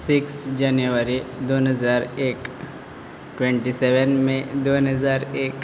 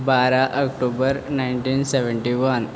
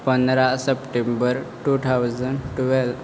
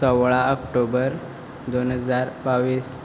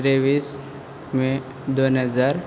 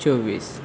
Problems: background sounds at intervals